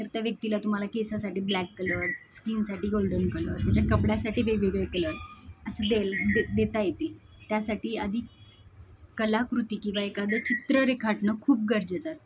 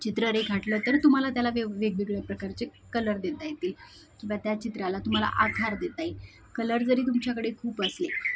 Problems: constant background noise, background conversations at intervals